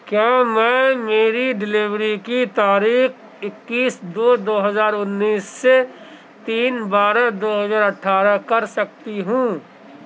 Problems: constant background noise